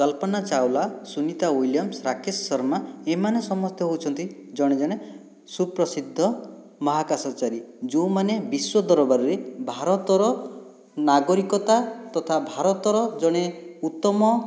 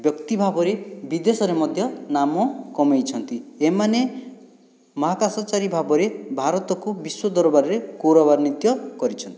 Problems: none marked